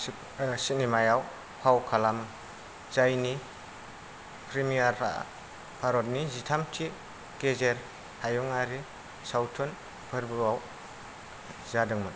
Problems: none marked